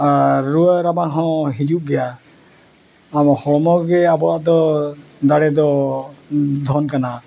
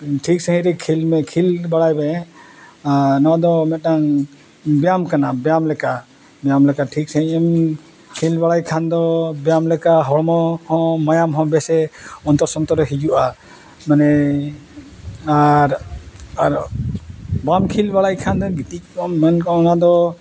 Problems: none marked